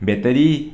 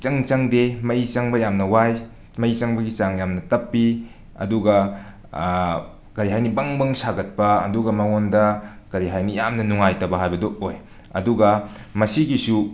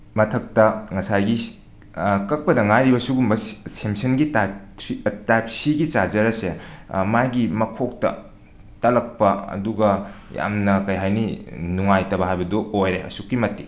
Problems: background sounds at intervals, background conversations at intervals